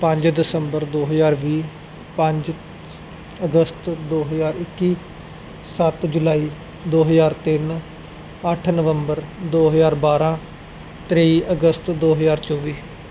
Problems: none marked